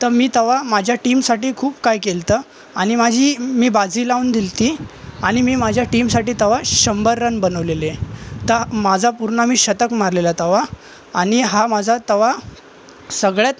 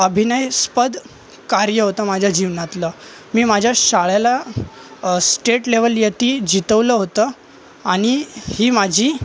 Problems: constant background noise, continuous background conversations